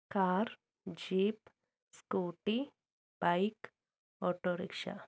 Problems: low volume